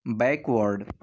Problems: none marked